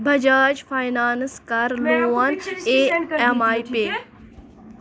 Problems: continuous background conversations